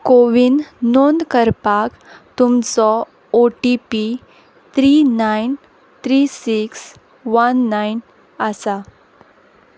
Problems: background sounds at intervals